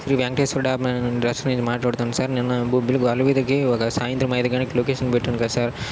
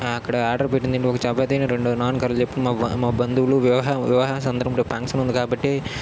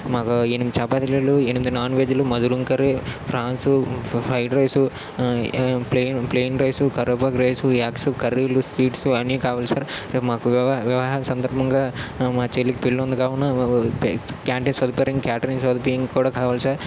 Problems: constant background noise